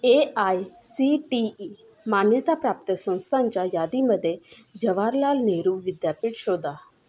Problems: constant background noise